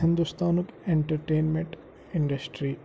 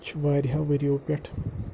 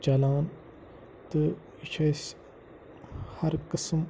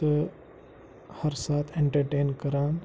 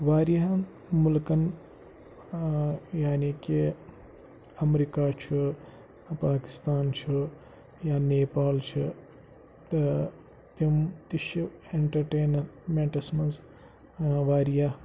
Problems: constant background noise